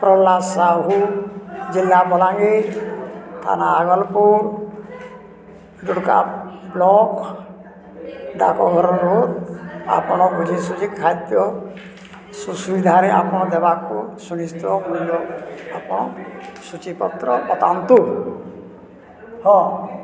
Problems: constant background noise, continuous background conversations